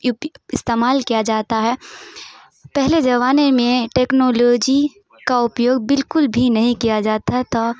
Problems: none marked